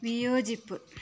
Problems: low volume